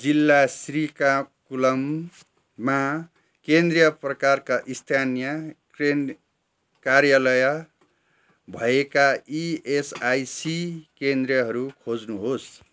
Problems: background sounds at intervals